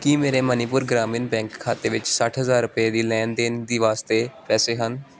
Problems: background sounds at intervals